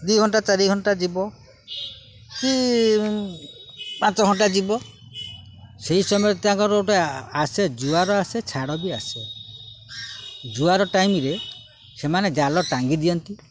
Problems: none marked